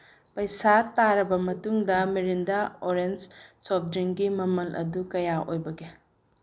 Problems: none marked